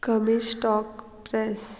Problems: background sounds at intervals